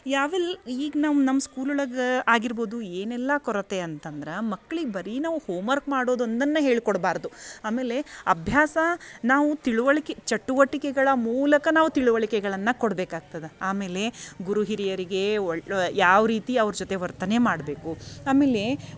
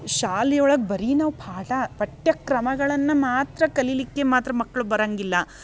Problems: background sounds at intervals